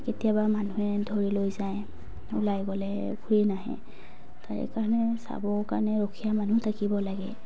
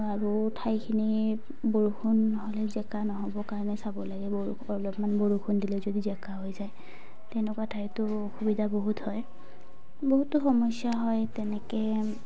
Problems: background sounds at intervals